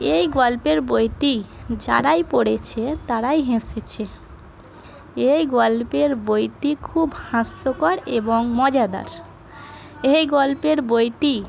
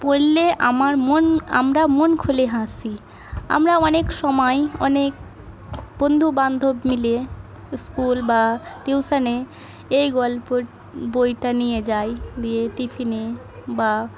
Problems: none marked